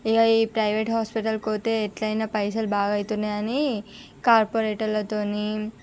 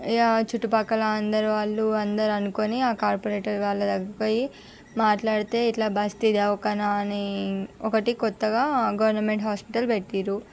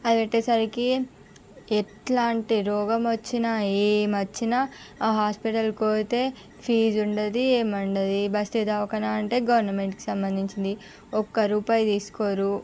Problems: background sounds at intervals